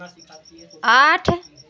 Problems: background conversations at intervals